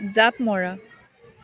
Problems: constant background noise